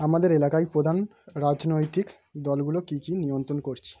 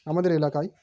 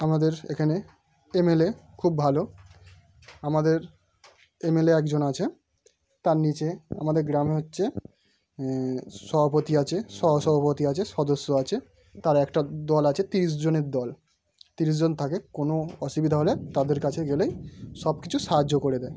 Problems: background sounds at intervals